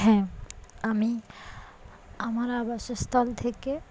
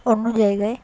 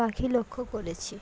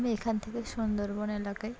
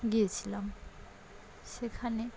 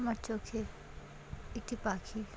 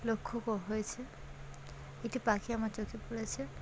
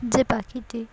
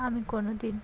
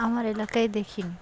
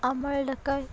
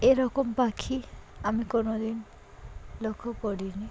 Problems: background sounds at intervals